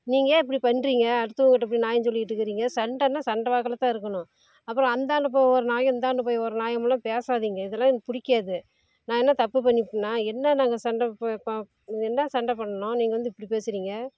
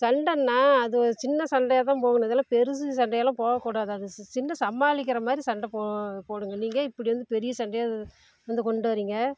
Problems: none marked